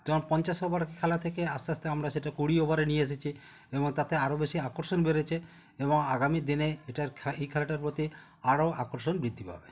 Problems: continuous background conversations